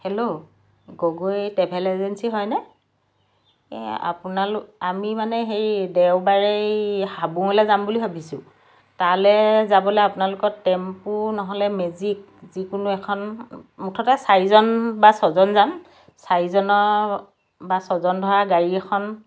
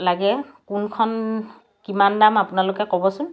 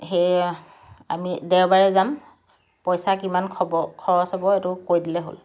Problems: background sounds at intervals